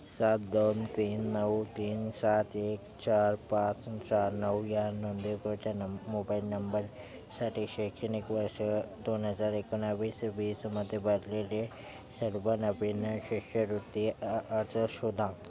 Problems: constant background noise, background conversations at intervals